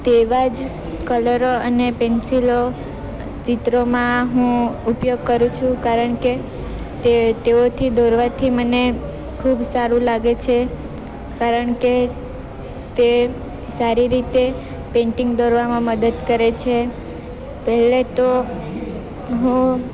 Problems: constant background noise